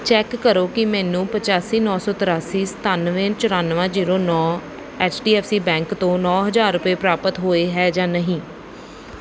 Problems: background sounds at intervals